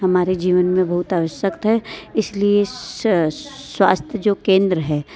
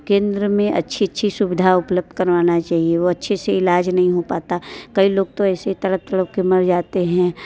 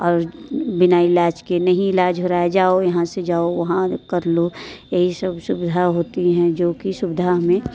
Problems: none marked